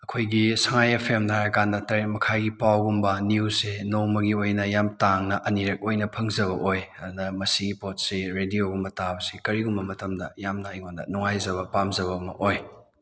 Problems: none marked